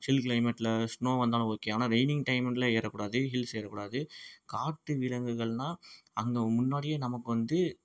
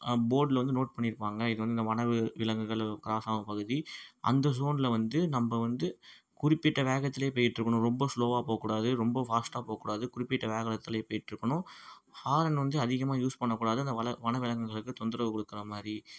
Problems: background sounds at intervals